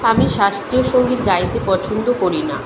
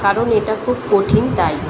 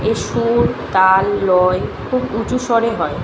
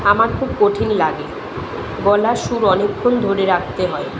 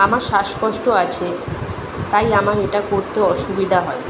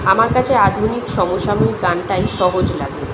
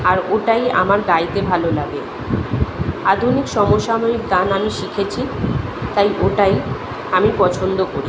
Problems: constant background noise, continuous background conversations